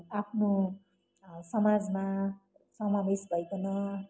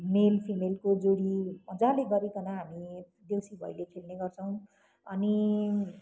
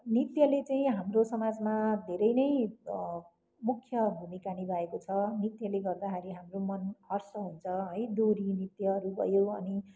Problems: none marked